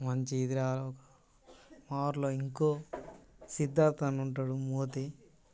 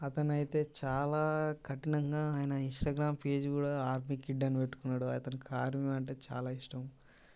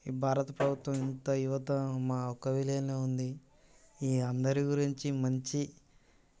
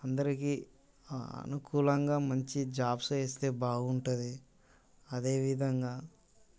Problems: constant background noise